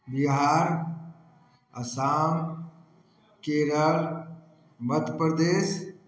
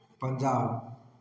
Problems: none marked